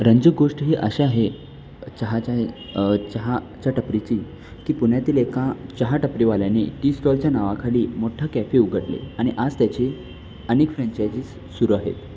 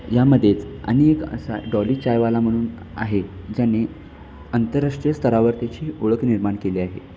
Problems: none marked